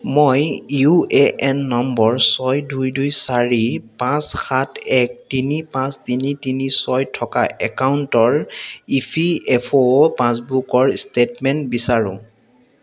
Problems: background sounds at intervals, background conversations at intervals, echo